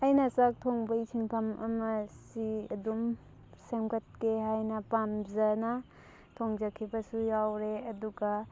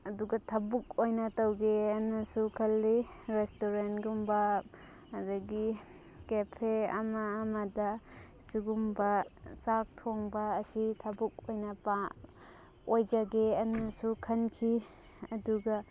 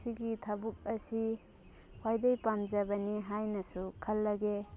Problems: background sounds at intervals